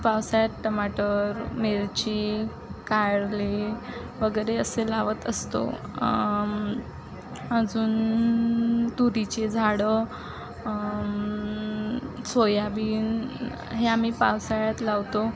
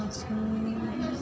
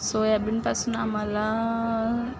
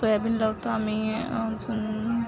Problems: constant background noise, background conversations at intervals